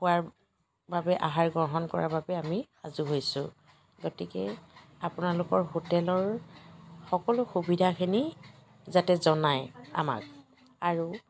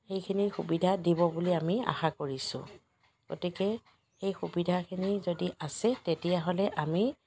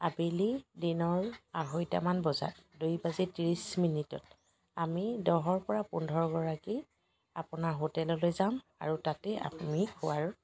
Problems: constant background noise, background conversations at intervals